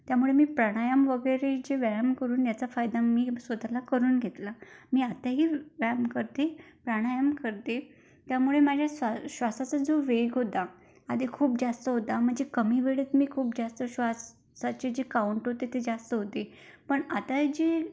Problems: background sounds at intervals